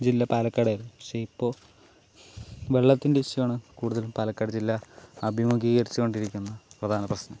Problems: none marked